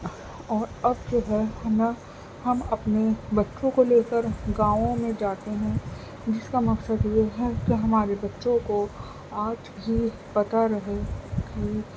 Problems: constant background noise